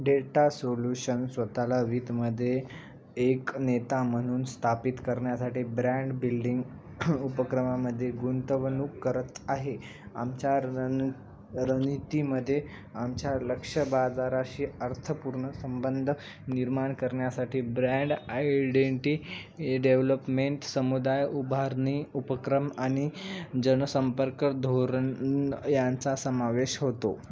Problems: none marked